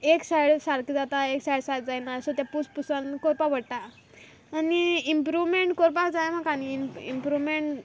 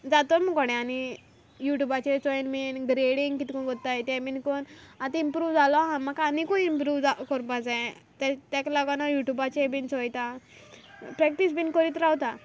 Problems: constant background noise